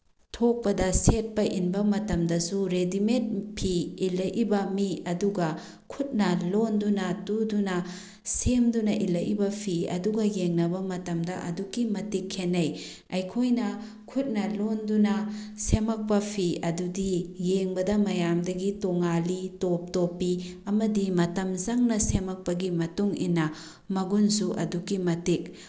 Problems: background sounds at intervals